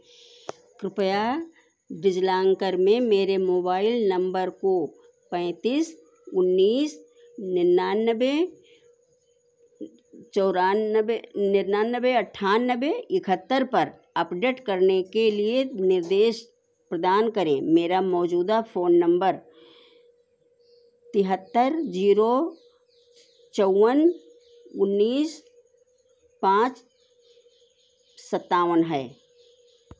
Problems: background sounds at intervals